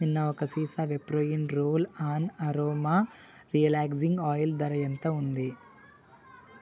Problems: none marked